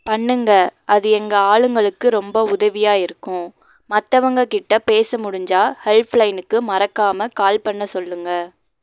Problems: none marked